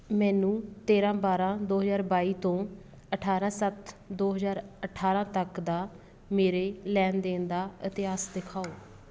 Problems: none marked